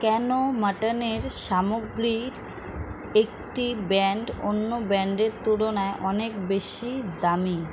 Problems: constant background noise